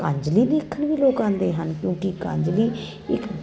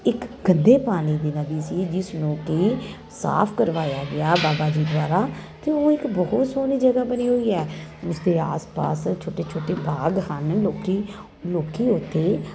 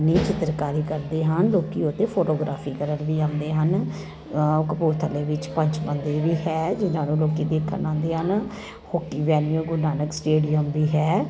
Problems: constant background noise